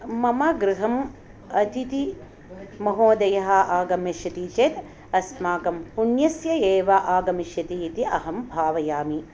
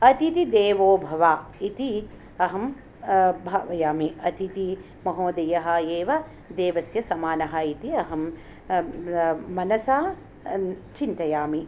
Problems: none marked